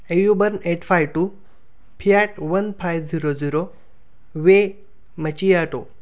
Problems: none marked